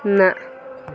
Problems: constant background noise